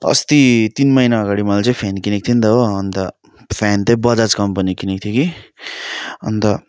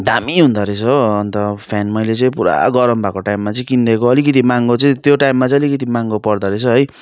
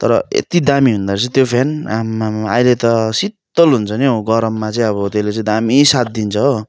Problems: continuous background conversations